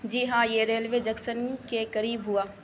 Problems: constant background noise